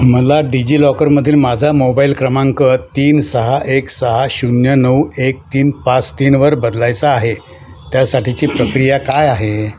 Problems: none marked